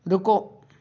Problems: none marked